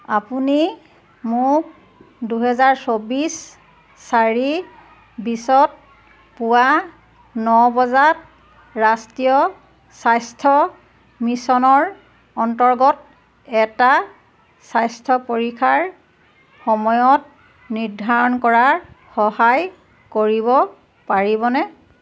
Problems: constant background noise, background conversations at intervals